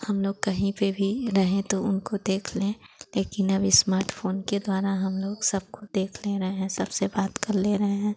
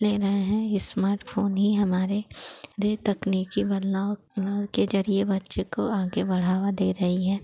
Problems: constant background noise